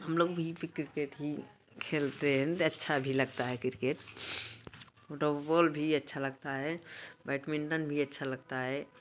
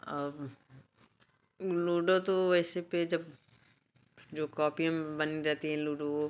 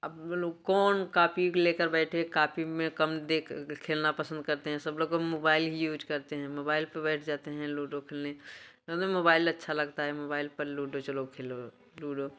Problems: background sounds at intervals, background conversations at intervals